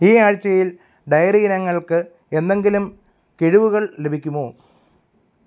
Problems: none marked